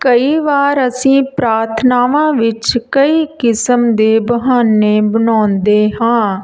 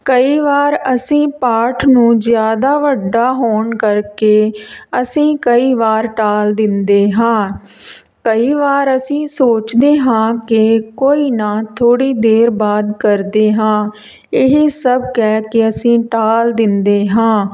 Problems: none marked